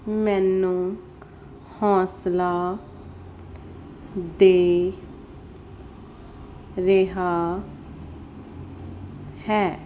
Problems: background sounds at intervals